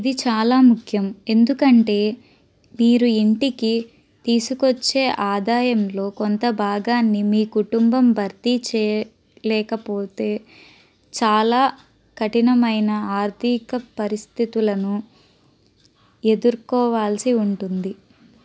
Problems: none marked